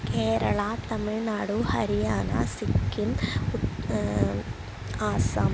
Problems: constant background noise